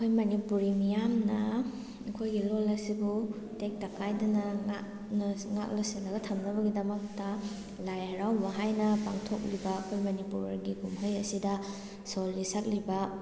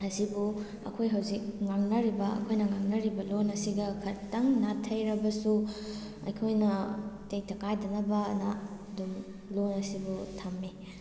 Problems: background sounds at intervals